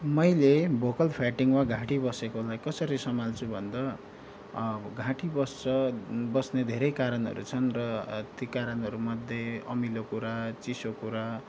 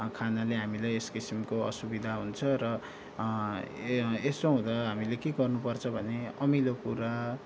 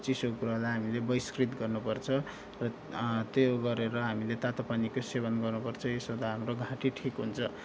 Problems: background sounds at intervals